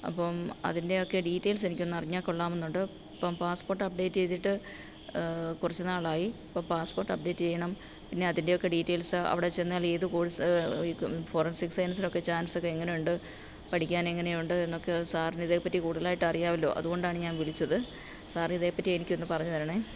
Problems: low volume